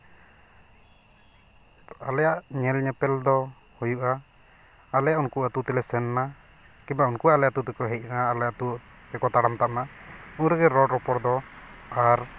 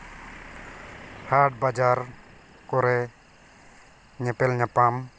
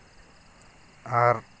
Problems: none marked